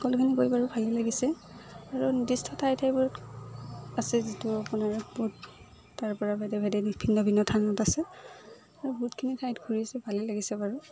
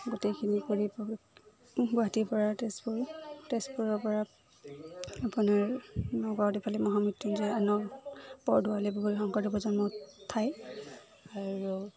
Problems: none marked